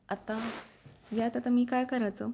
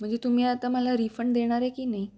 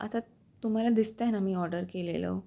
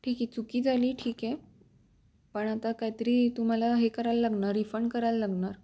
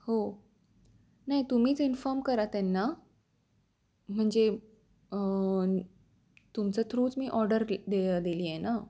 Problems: background sounds at intervals